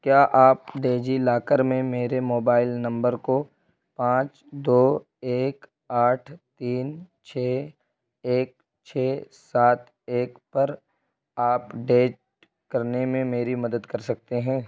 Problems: constant background noise